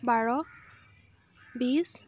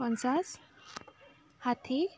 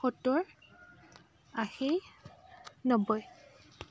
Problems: none marked